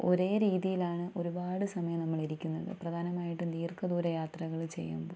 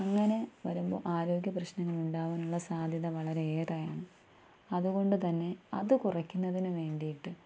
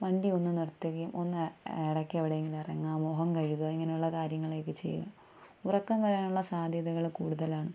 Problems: low volume